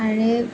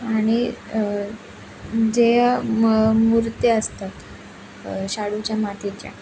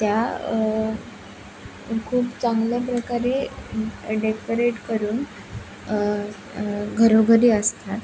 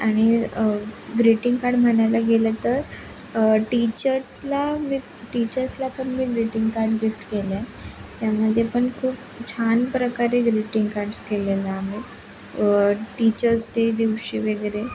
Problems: constant background noise, continuous background conversations